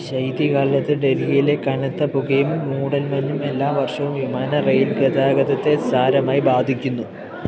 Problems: constant background noise